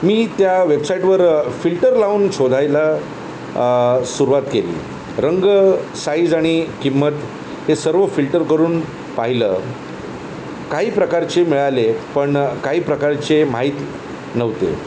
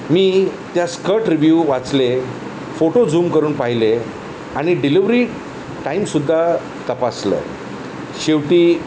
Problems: constant background noise